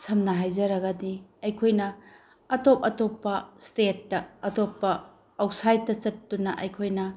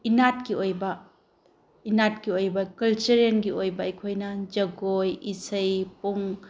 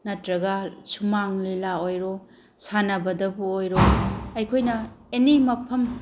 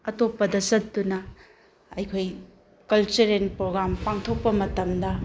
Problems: background conversations at intervals